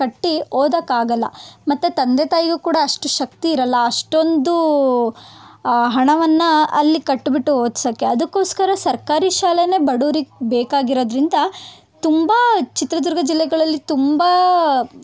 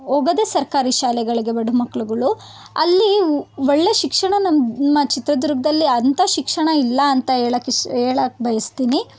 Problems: none marked